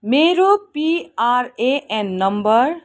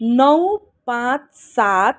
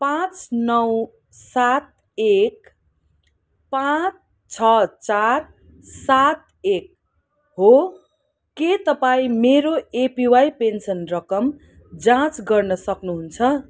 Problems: background sounds at intervals